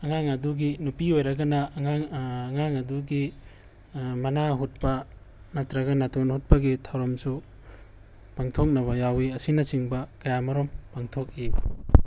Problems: background sounds at intervals